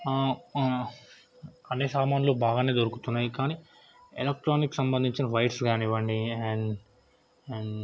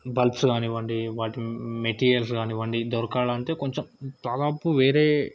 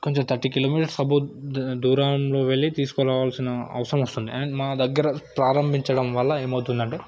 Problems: background conversations at intervals